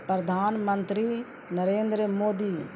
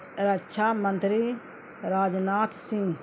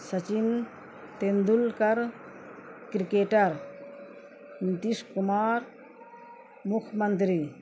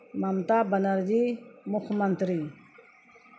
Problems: constant background noise